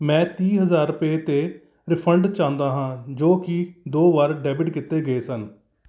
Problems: none marked